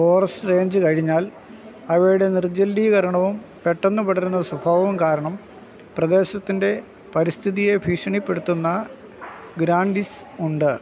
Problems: constant background noise